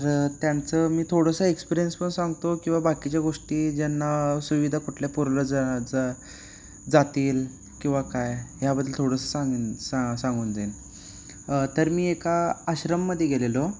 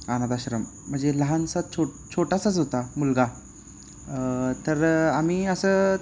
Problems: constant background noise, continuous background conversations